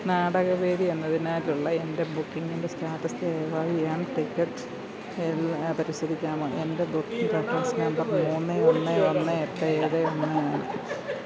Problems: constant background noise